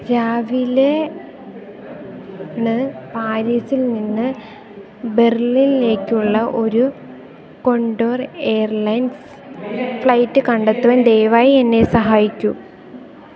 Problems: background sounds at intervals